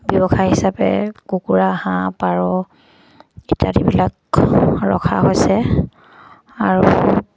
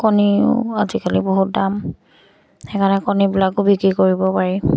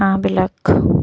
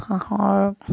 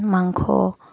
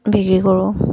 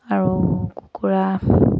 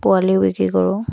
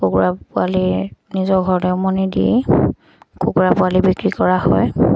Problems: constant background noise